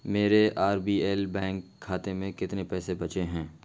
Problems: constant background noise